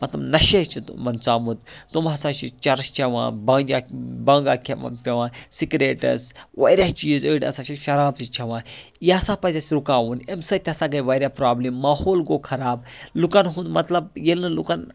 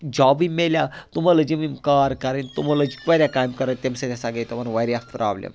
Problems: none marked